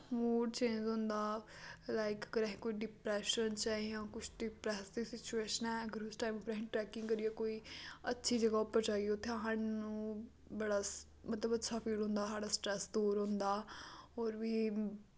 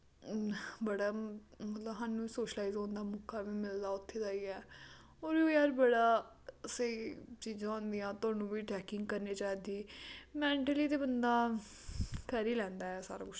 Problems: constant background noise